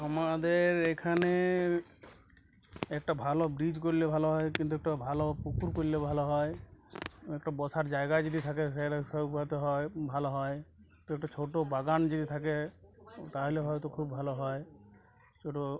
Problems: continuous background conversations